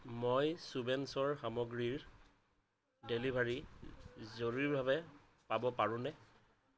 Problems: constant background noise